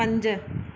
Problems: none marked